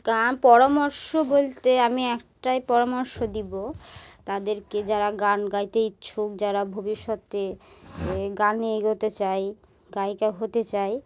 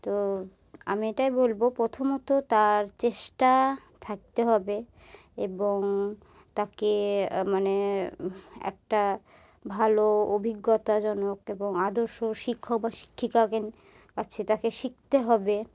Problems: background sounds at intervals